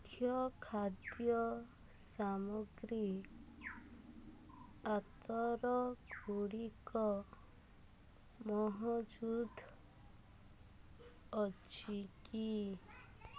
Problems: low volume